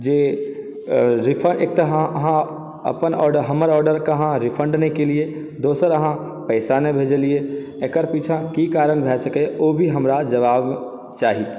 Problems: background sounds at intervals